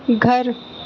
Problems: none marked